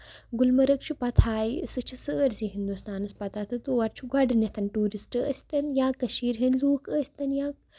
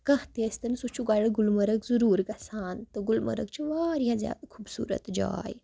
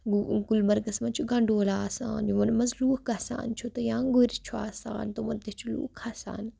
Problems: background sounds at intervals